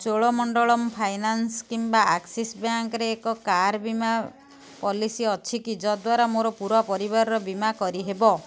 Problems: none marked